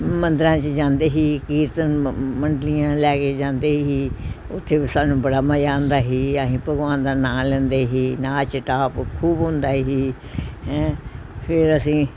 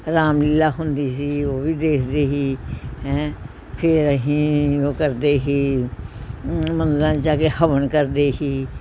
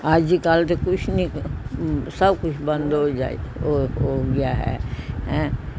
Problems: background conversations at intervals